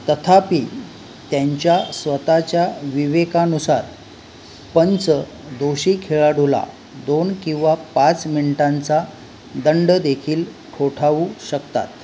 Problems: none marked